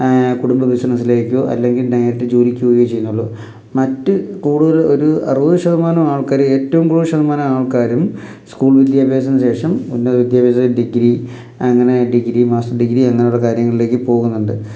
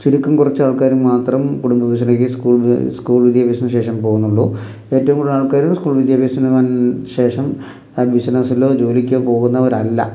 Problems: none marked